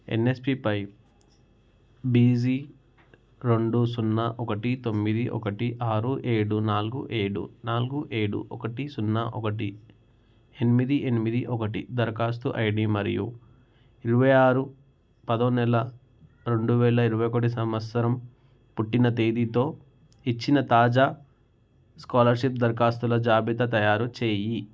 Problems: none marked